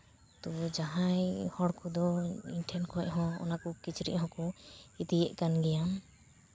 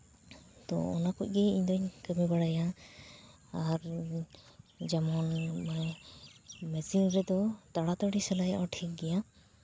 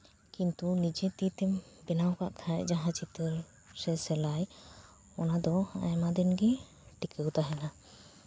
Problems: constant background noise, background conversations at intervals